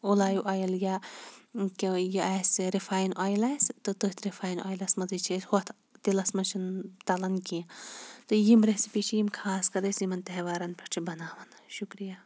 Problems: background sounds at intervals